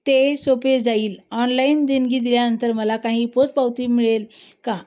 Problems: none marked